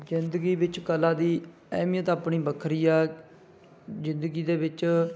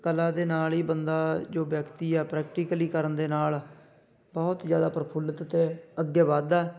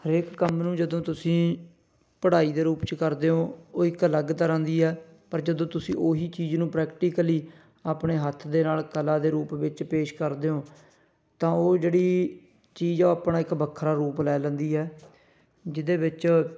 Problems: background sounds at intervals